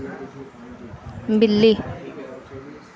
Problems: low volume